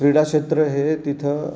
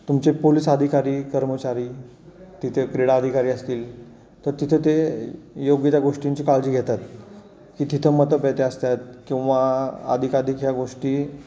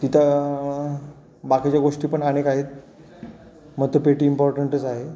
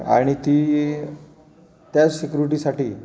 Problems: none marked